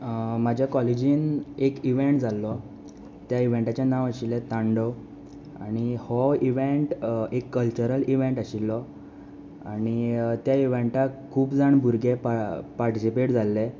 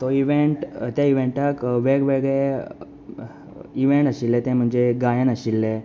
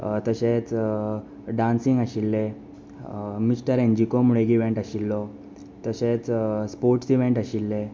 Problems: none marked